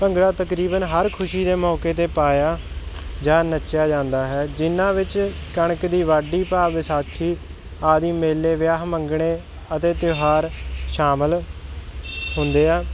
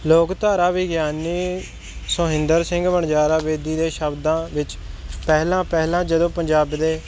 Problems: none marked